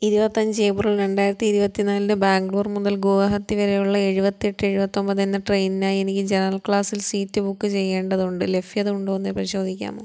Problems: none marked